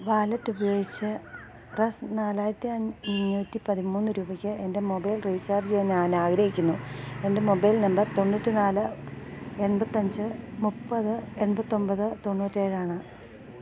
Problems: constant background noise, low volume